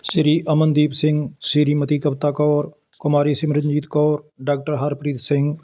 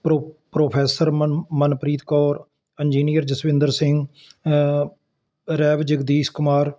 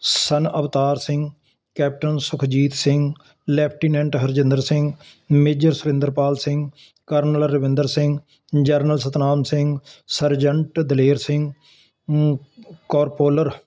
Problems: constant background noise